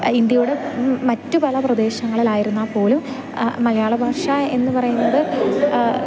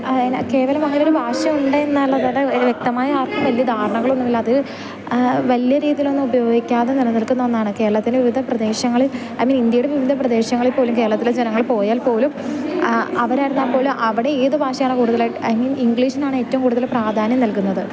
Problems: constant background noise, continuous background conversations, low volume